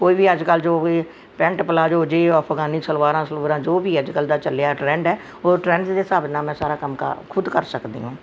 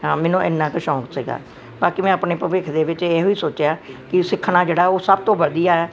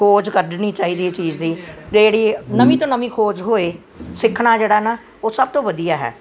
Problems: none marked